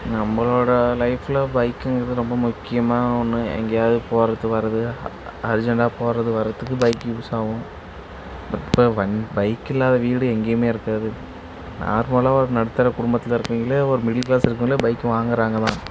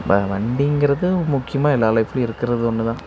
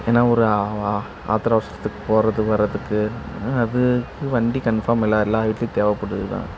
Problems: constant background noise